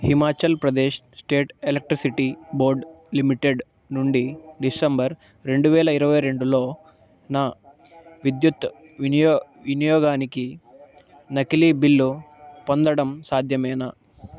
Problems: constant background noise